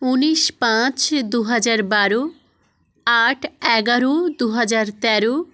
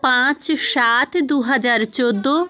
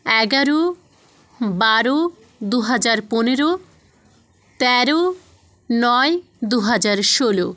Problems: none marked